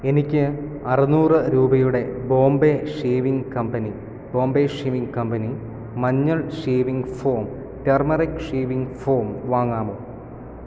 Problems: none marked